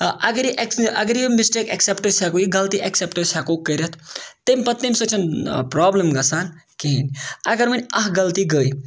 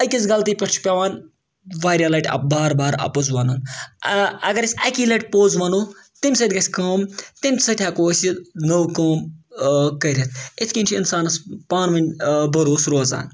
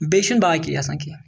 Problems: none marked